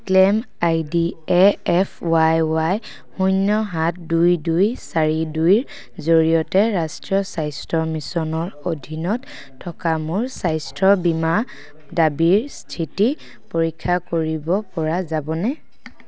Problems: none marked